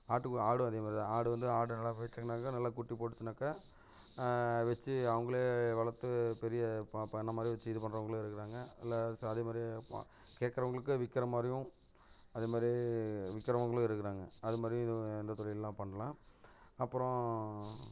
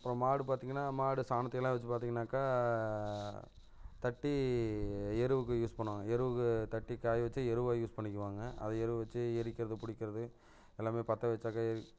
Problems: none marked